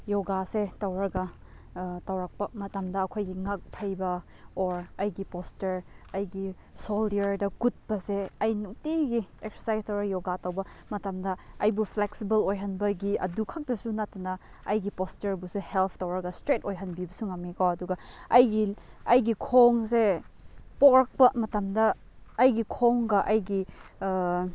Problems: none marked